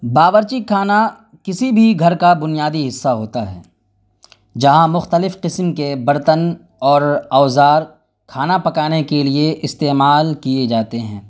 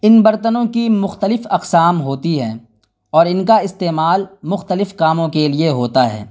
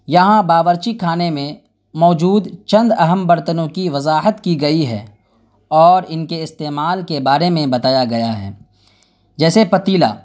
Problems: none marked